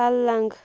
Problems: background sounds at intervals